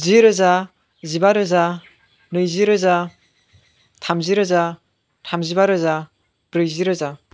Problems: constant background noise